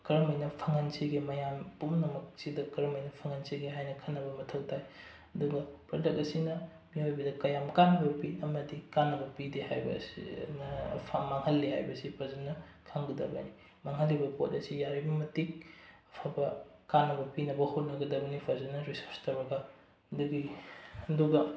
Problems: low volume